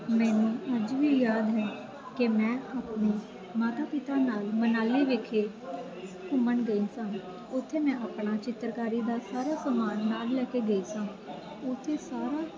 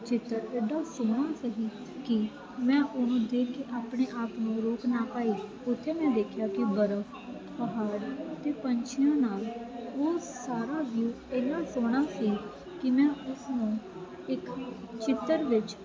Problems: constant background noise